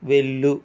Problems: constant background noise